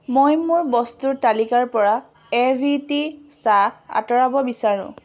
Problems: none marked